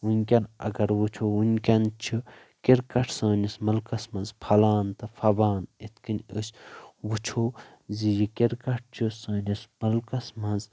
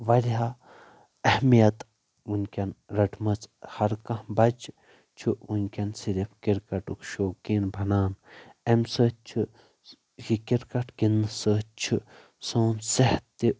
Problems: background sounds at intervals